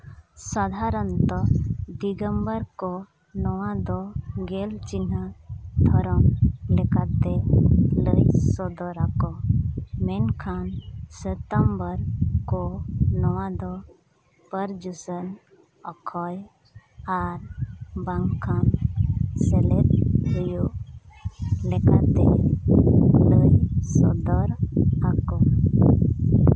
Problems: none marked